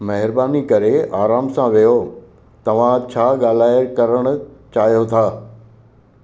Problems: constant background noise, echo